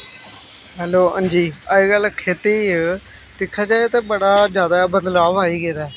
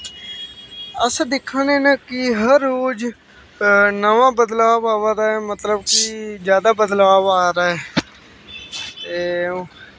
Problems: constant background noise